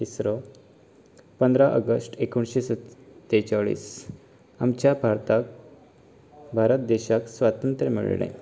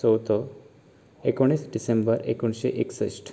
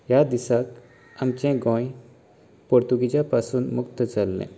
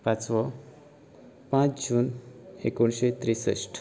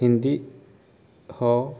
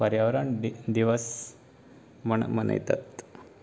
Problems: background conversations at intervals